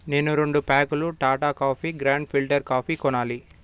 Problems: background sounds at intervals